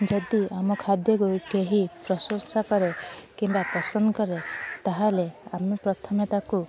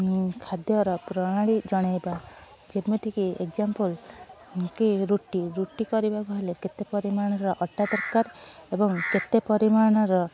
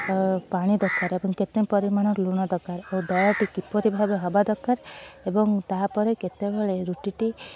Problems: background sounds at intervals